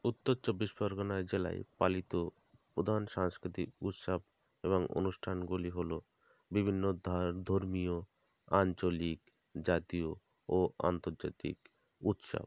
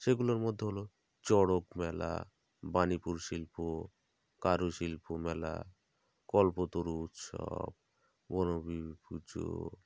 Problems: none marked